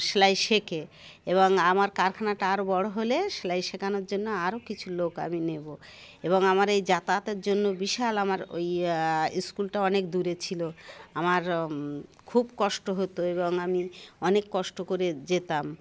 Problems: constant background noise, continuous background conversations